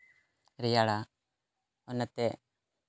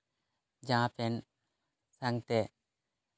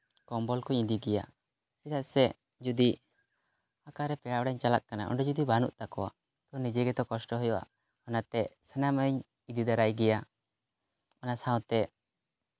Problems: background sounds at intervals